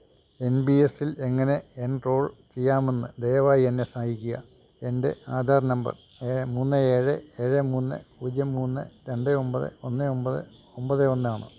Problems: none marked